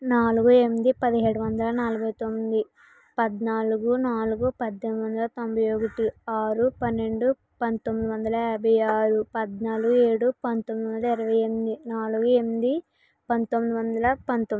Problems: background sounds at intervals